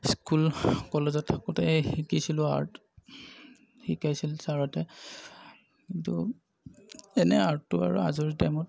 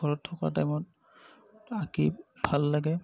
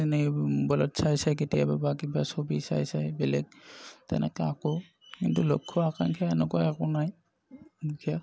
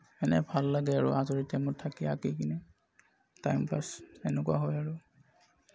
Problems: background sounds at intervals